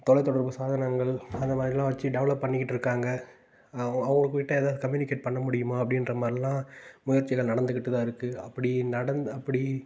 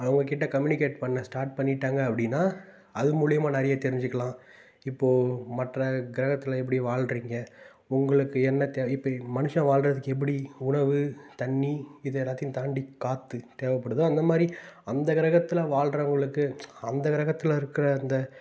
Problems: background sounds at intervals